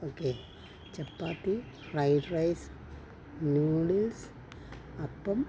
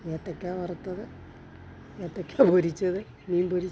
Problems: none marked